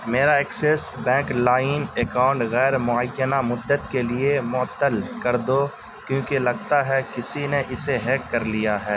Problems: constant background noise